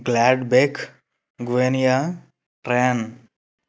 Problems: none marked